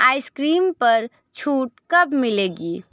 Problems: none marked